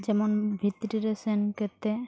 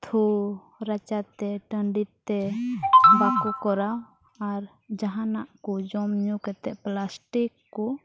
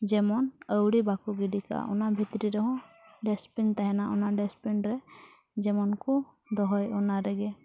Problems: background sounds at intervals, low volume